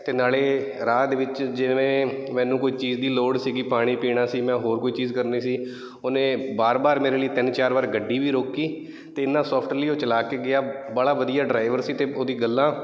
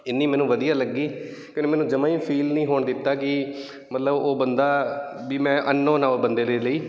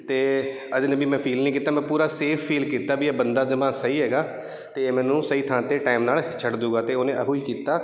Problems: none marked